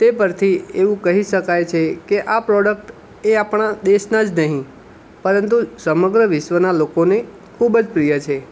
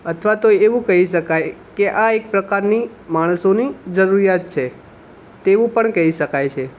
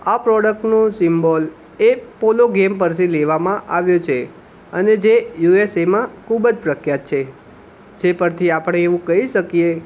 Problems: background sounds at intervals